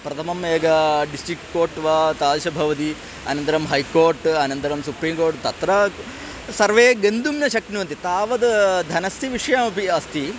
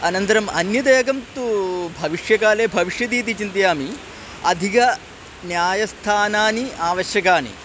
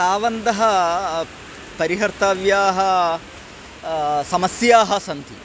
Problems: constant background noise